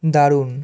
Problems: none marked